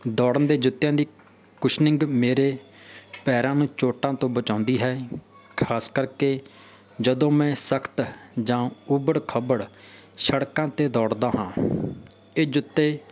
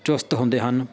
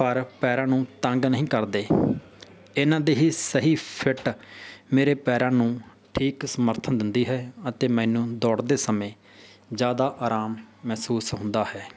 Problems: none marked